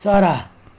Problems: background sounds at intervals